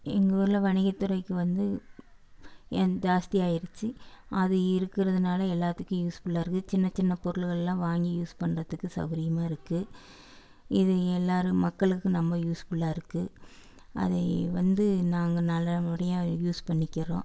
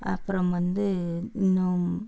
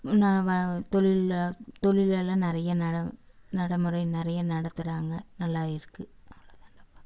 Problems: none marked